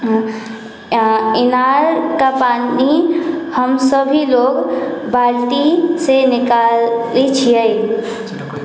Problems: background conversations at intervals